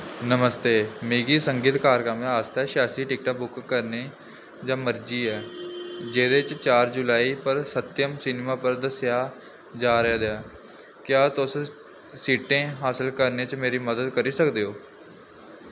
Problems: background sounds at intervals